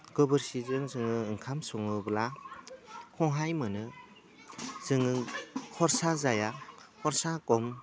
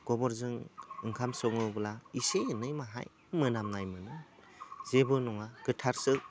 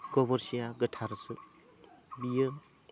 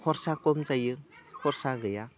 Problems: low volume